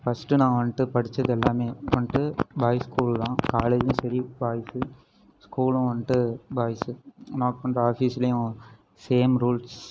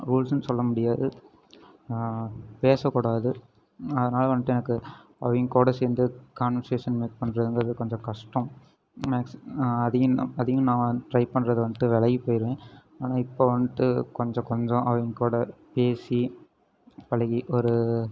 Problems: background sounds at intervals